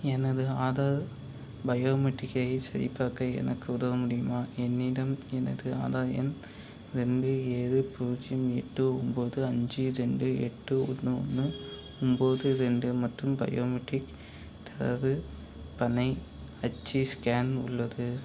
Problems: none marked